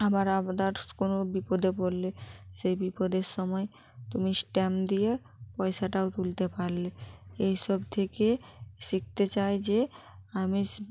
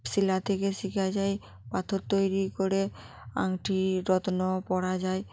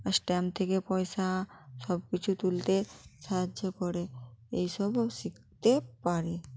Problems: background sounds at intervals